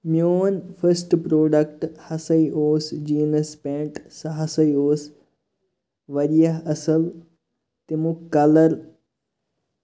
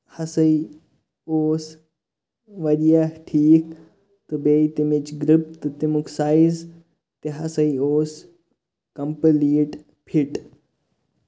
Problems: background sounds at intervals